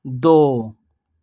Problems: none marked